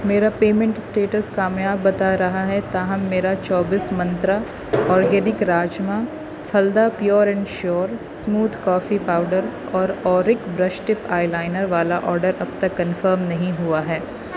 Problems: constant background noise